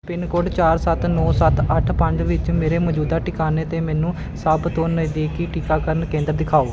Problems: background sounds at intervals